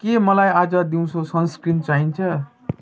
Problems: background sounds at intervals